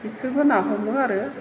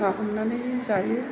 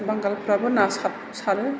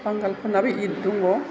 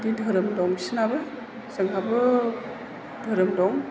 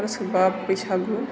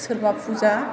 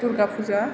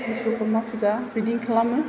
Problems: constant background noise, background conversations at intervals